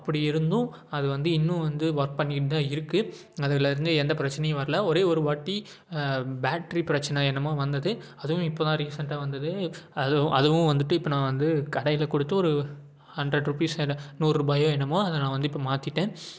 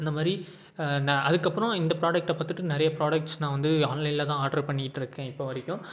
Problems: none marked